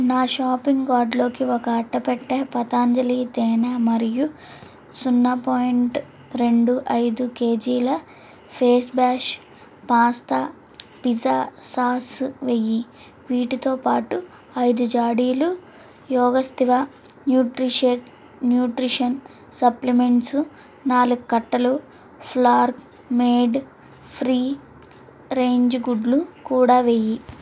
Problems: constant background noise